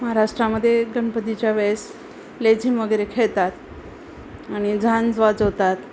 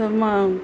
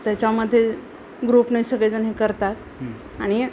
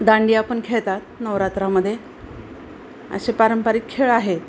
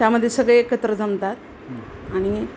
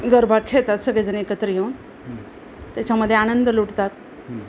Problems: none marked